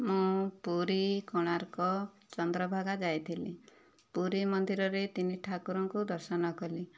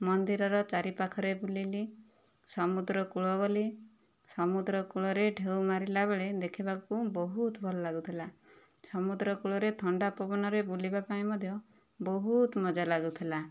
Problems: none marked